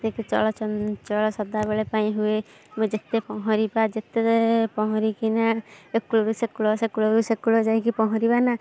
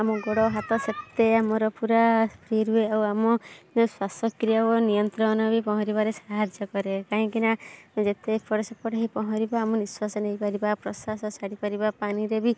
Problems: constant background noise